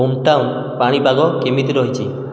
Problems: none marked